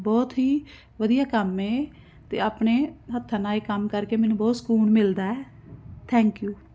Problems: constant background noise